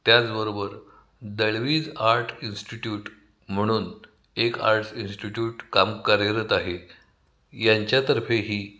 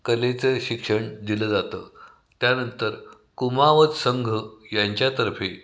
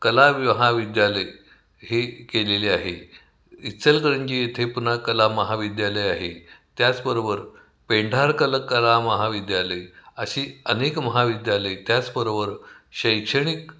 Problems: background sounds at intervals, echo